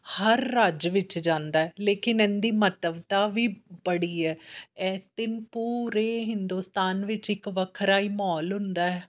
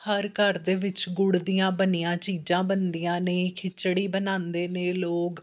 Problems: background sounds at intervals